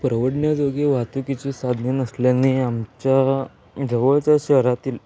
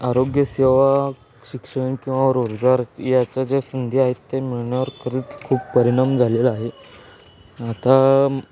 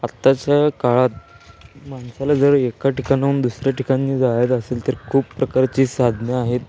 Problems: none marked